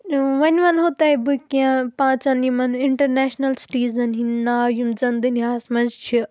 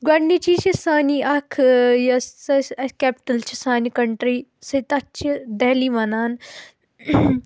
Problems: constant background noise